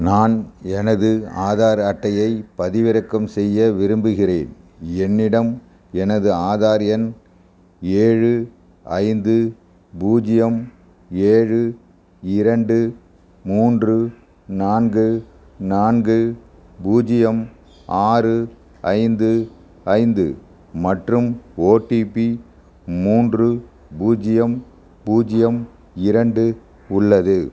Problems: background sounds at intervals